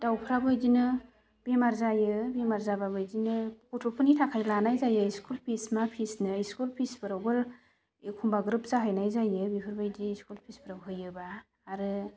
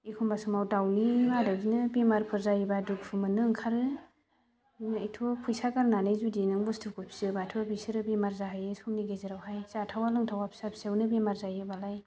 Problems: constant background noise